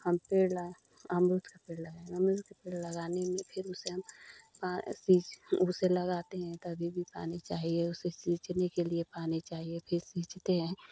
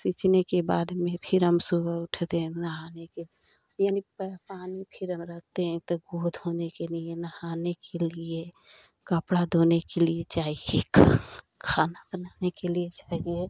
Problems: none marked